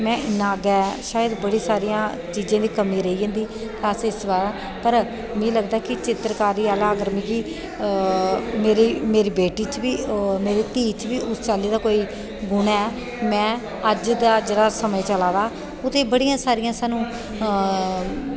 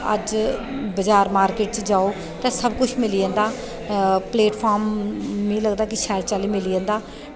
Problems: echo